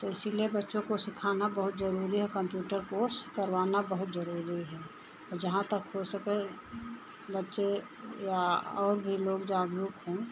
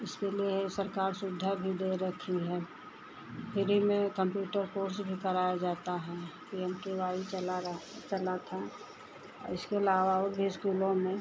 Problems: constant background noise, continuous background conversations